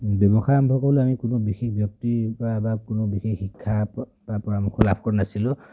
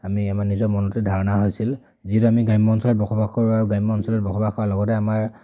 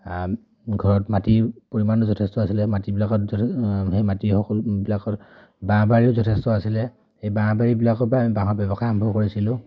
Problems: none marked